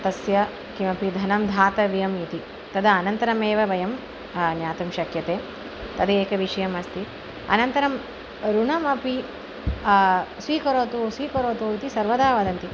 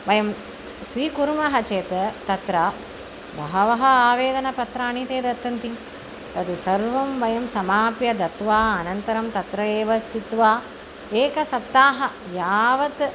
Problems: constant background noise